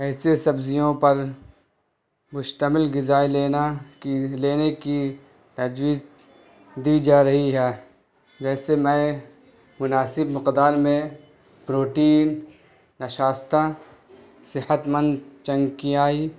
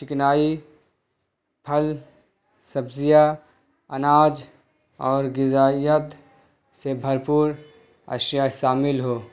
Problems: constant background noise